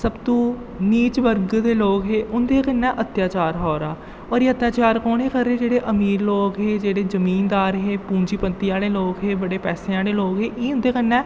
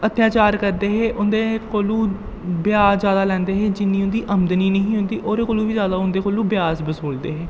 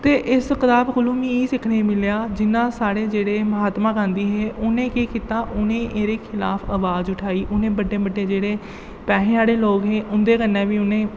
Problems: low volume